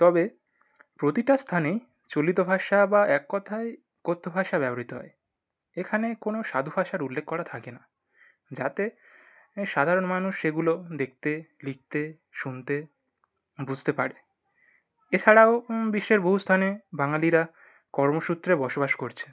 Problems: none marked